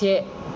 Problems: low volume